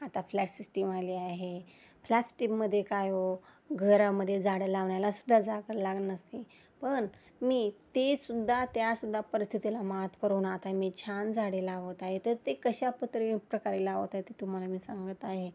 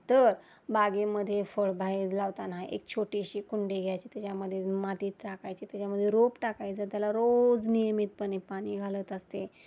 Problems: constant background noise